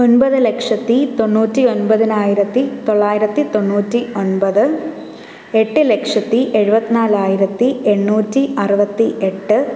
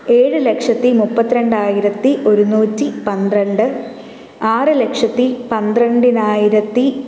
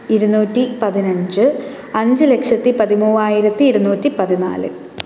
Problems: background sounds at intervals